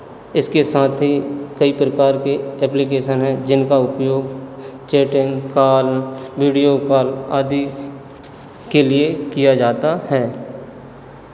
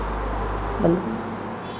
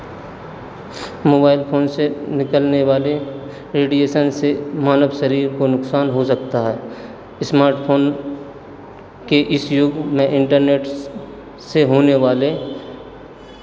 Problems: none marked